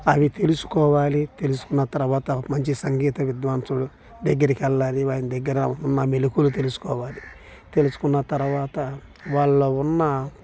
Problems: constant background noise